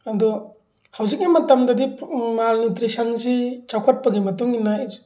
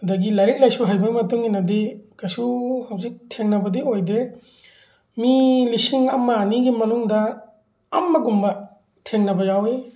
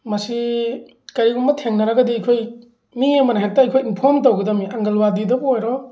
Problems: none marked